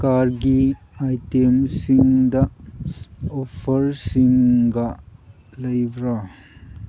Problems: background sounds at intervals